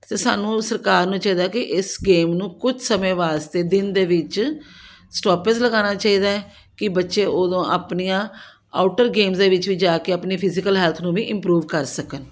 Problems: background sounds at intervals